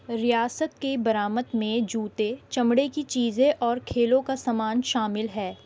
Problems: constant background noise